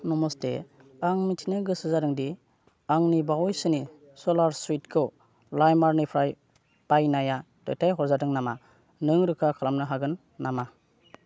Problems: none marked